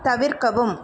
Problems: constant background noise